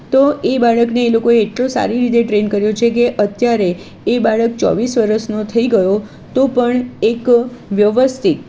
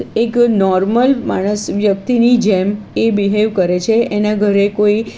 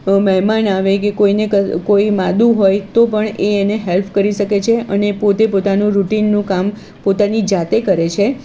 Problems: constant background noise